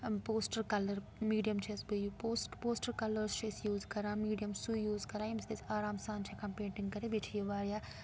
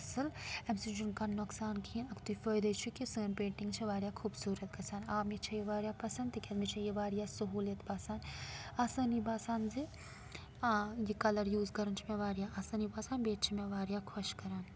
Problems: background sounds at intervals